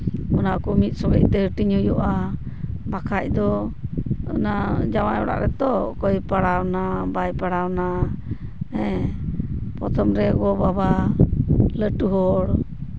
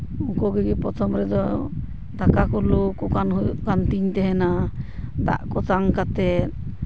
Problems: background sounds at intervals